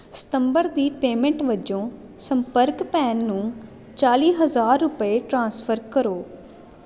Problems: constant background noise